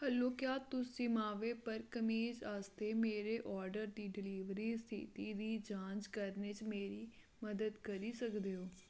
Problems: low volume